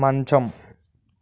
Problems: none marked